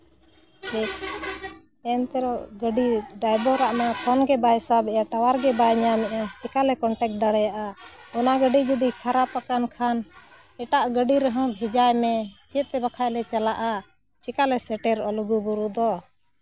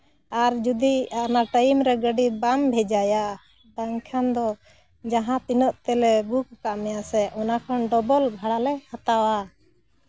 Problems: background sounds at intervals